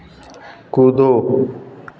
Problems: constant background noise